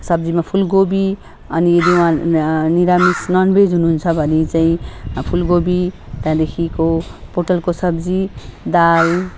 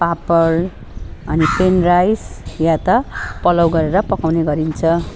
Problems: constant background noise